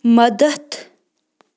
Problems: none marked